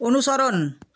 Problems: none marked